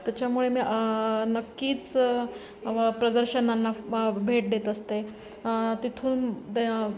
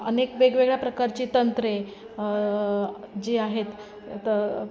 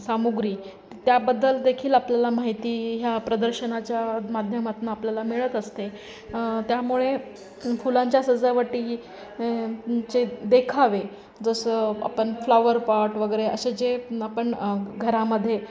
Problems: constant background noise, continuous background conversations